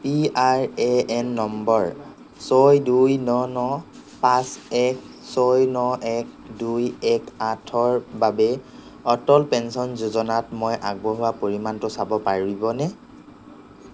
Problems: none marked